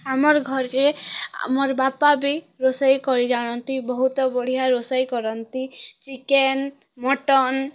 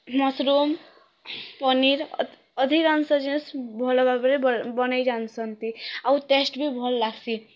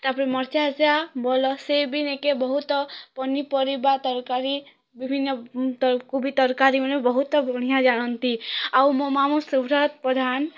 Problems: none marked